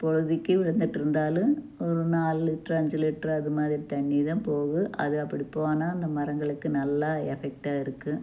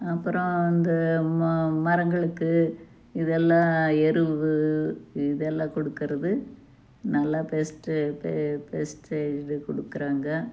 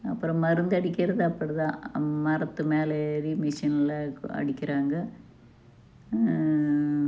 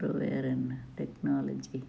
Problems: low volume